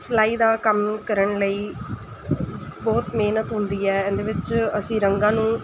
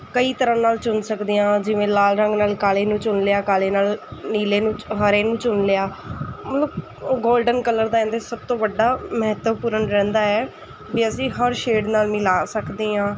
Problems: constant background noise